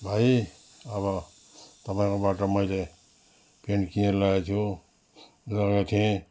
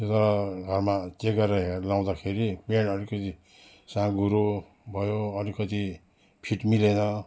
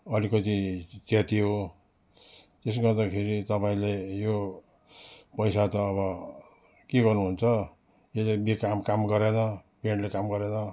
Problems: background sounds at intervals